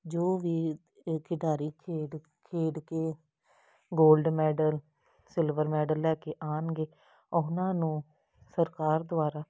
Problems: none marked